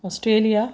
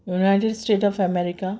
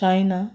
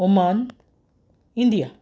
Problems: background sounds at intervals